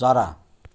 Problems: none marked